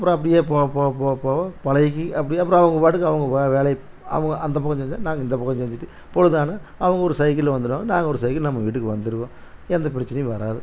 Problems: constant background noise